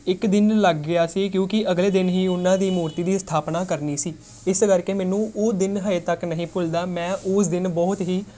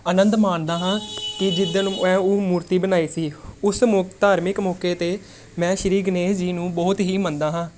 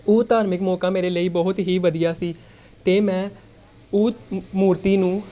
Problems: background conversations at intervals